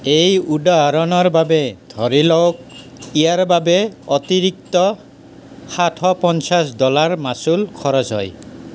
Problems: constant background noise